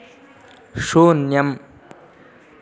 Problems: constant background noise